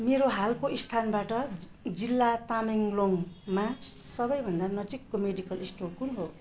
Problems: none marked